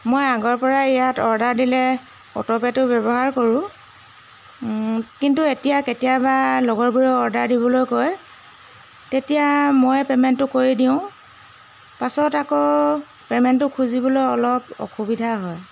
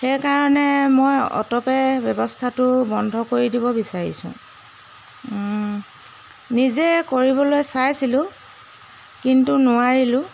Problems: constant background noise